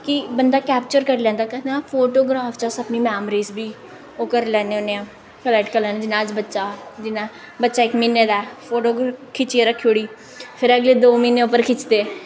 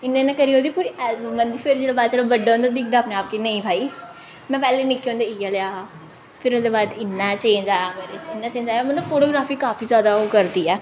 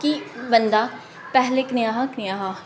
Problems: none marked